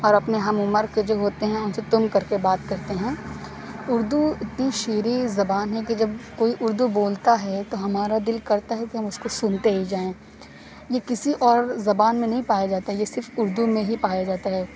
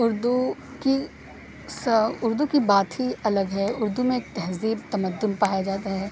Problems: none marked